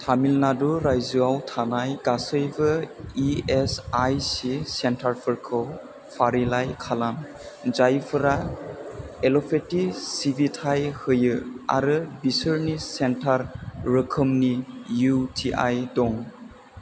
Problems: none marked